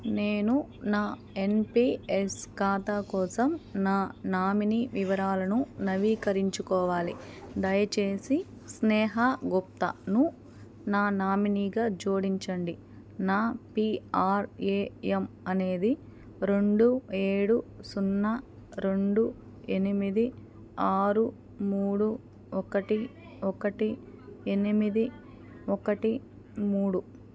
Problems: none marked